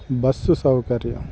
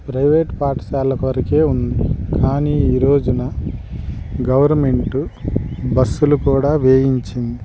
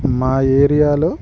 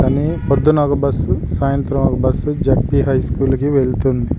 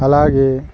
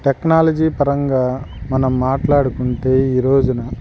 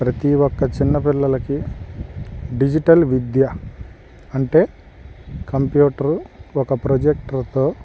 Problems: background sounds at intervals